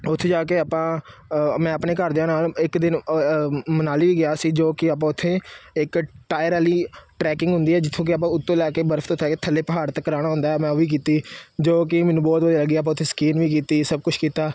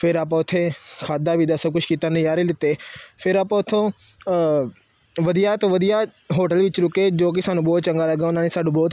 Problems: constant background noise